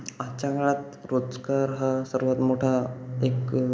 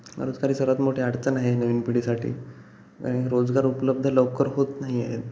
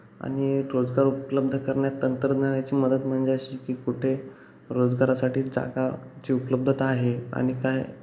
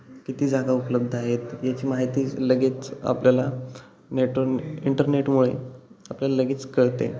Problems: constant background noise